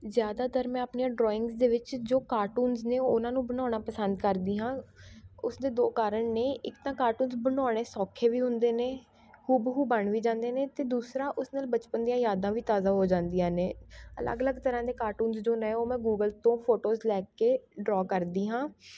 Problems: background sounds at intervals, continuous background conversations